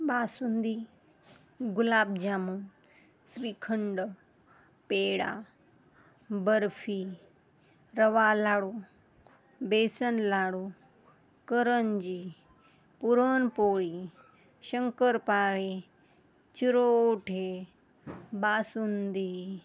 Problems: none marked